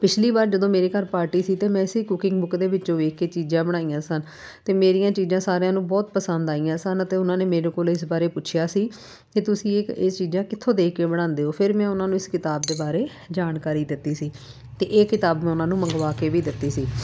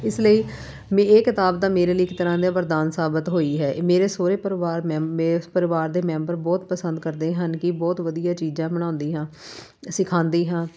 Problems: none marked